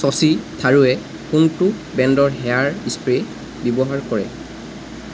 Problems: constant background noise